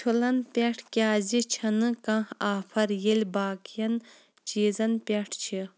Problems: background sounds at intervals